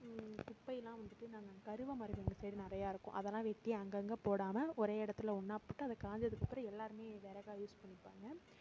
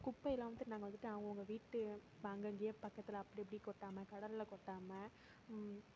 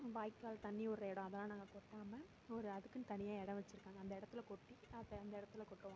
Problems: low volume